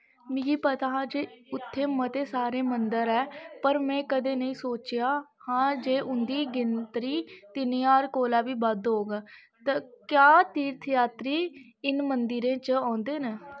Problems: none marked